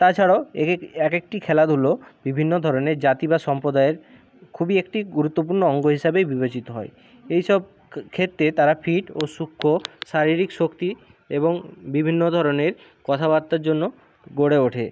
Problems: background sounds at intervals